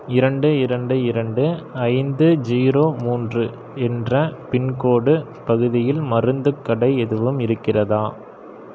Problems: none marked